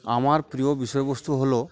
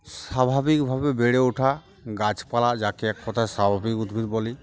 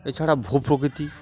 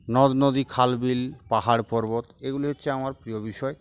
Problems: background sounds at intervals, background conversations at intervals